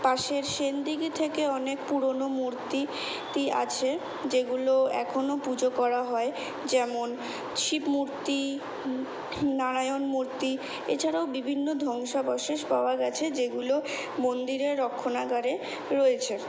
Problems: none marked